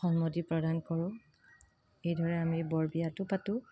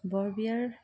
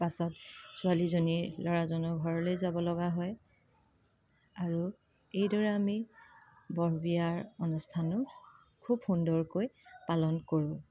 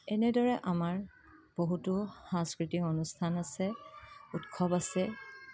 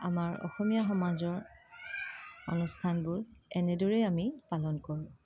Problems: constant background noise